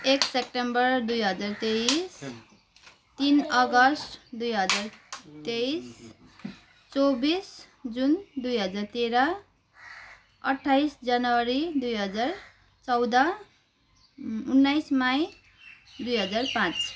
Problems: background sounds at intervals